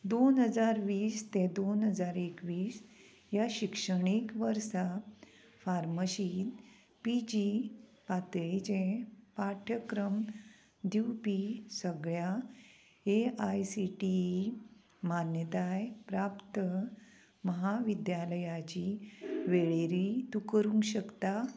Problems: none marked